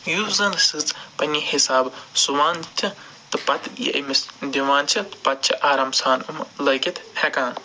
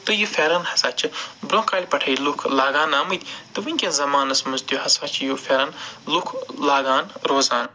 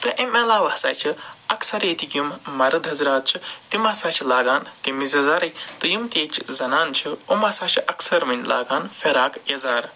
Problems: none marked